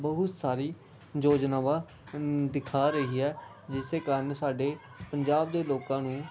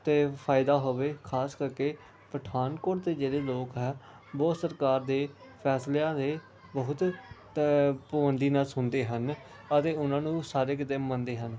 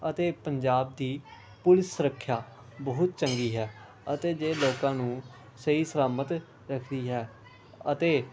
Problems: background sounds at intervals, background conversations at intervals